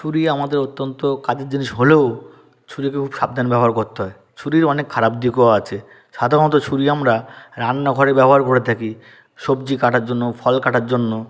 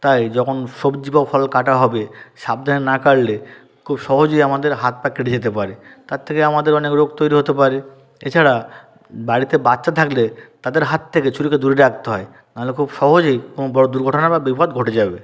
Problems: constant background noise